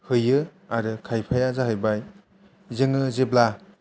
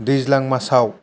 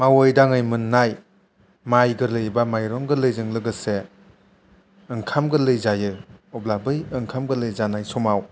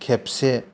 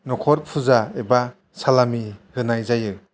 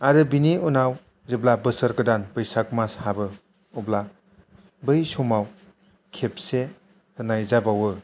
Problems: low volume